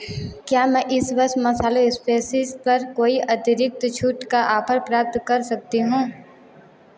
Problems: constant background noise, background conversations at intervals, echo